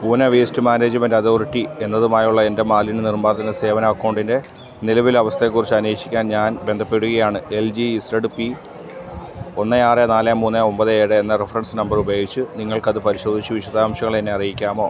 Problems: continuous background conversations